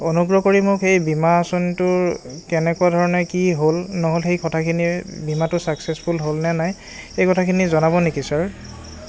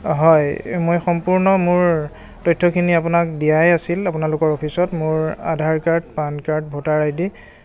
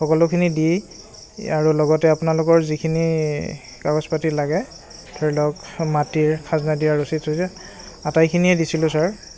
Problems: constant background noise, continuous background conversations